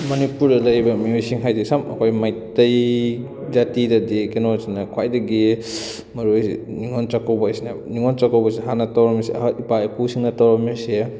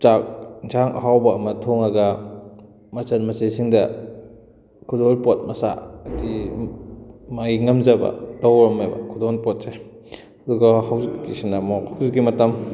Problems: continuous background conversations